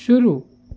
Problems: constant background noise